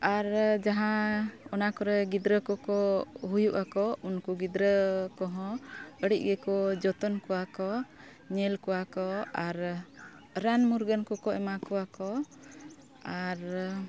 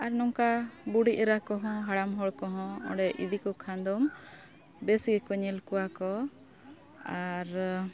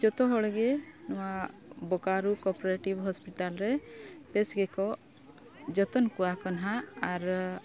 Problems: background sounds at intervals, continuous background conversations